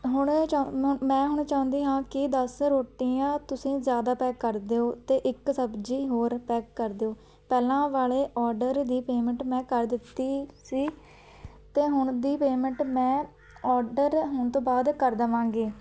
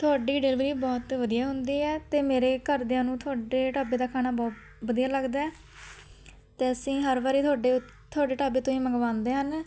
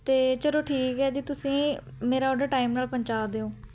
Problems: constant background noise